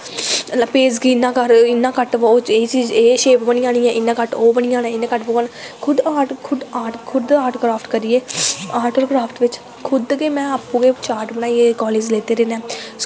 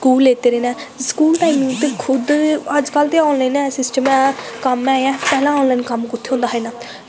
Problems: constant background noise, echo